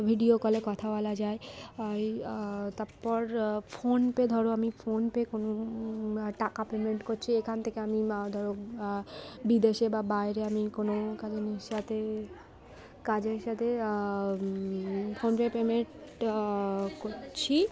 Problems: constant background noise, continuous background conversations